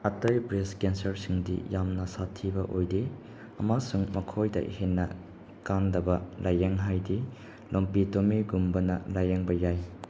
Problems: constant background noise